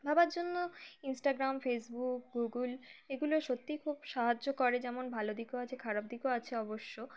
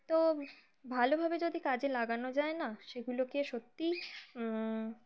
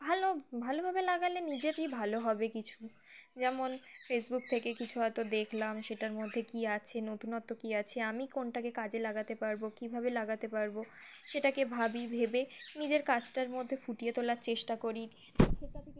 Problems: constant background noise